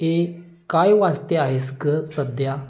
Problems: background sounds at intervals